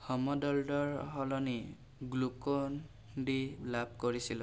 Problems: constant background noise